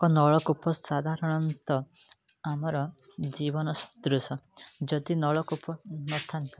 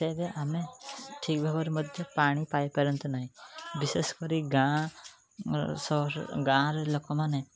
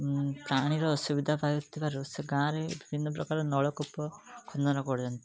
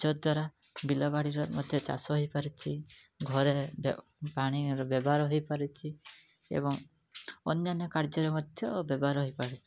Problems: background sounds at intervals, background conversations at intervals